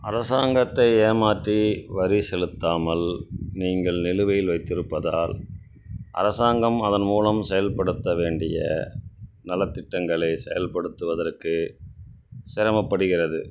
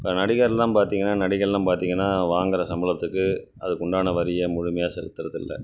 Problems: none marked